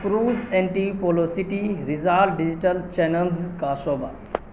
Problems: constant background noise